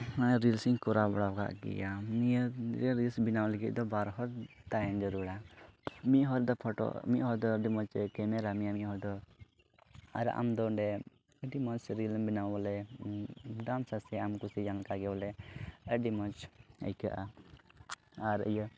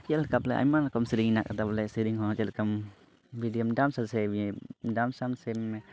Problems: background sounds at intervals, low volume